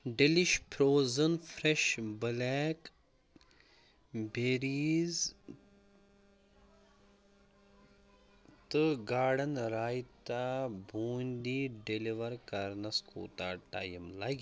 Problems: low volume